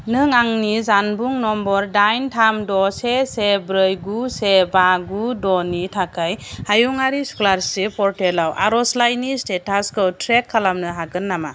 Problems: none marked